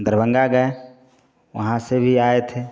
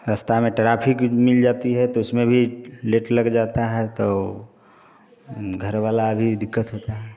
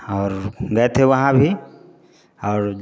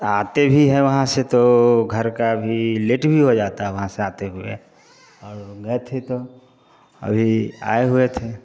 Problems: none marked